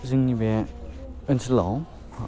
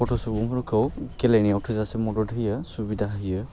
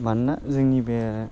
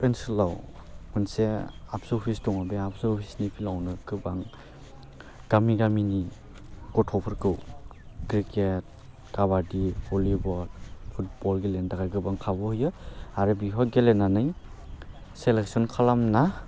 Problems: constant background noise